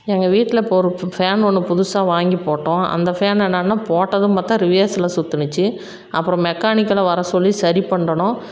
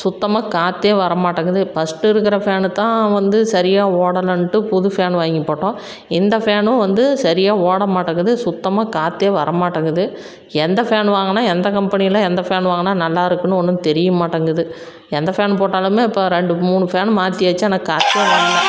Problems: background sounds at intervals